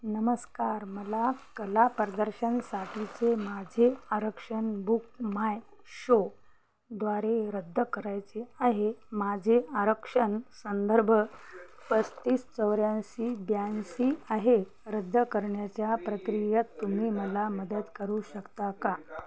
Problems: none marked